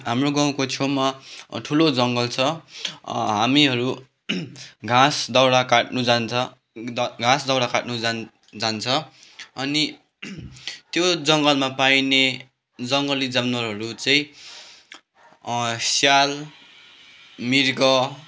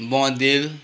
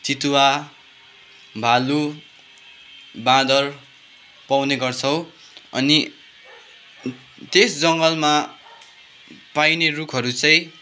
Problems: constant background noise, background conversations at intervals